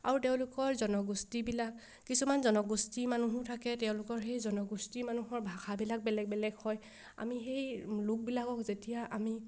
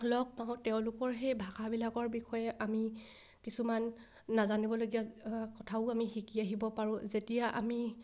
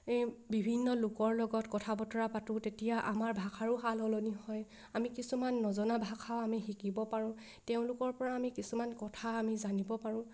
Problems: none marked